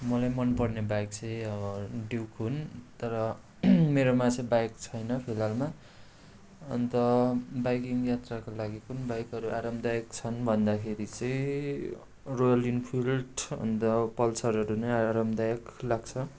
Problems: constant background noise